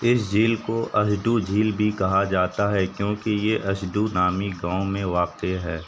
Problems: constant background noise